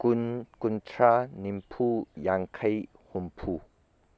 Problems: constant background noise